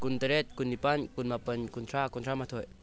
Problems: low volume